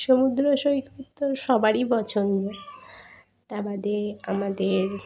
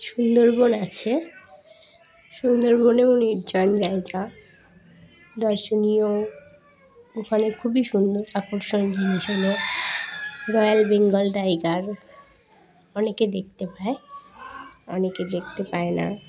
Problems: none marked